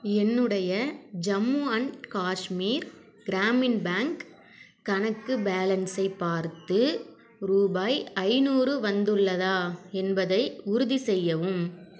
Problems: background conversations at intervals